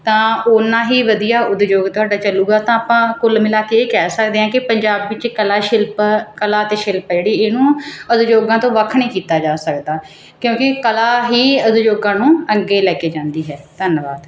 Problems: background sounds at intervals